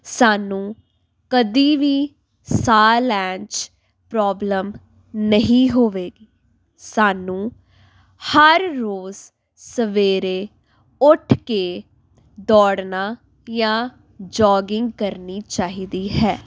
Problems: background sounds at intervals